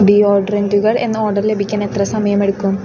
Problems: constant background noise